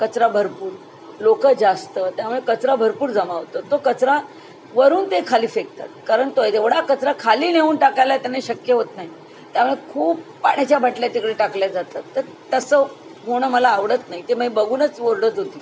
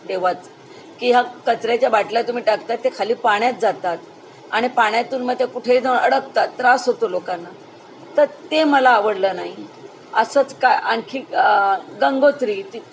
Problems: none marked